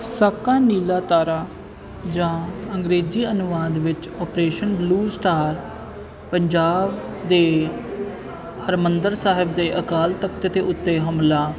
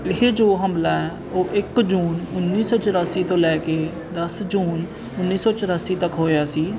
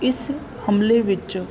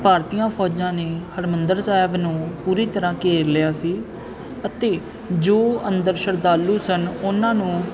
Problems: constant background noise